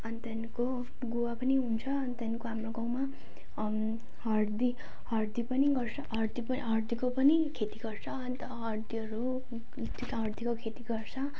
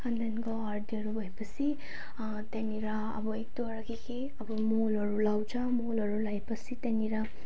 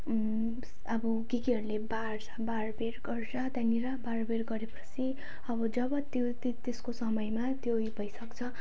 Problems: none marked